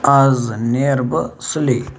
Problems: constant background noise